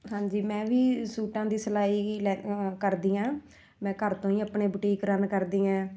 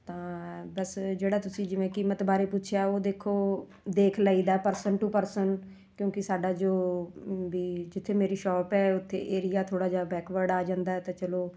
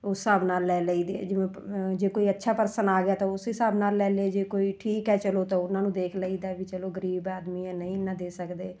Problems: none marked